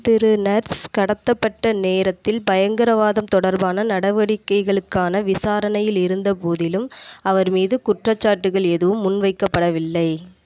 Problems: echo